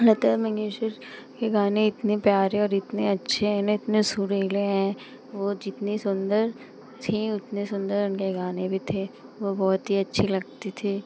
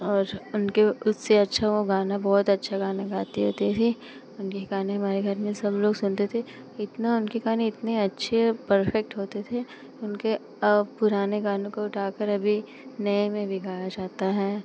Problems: none marked